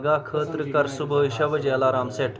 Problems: background sounds at intervals, background conversations at intervals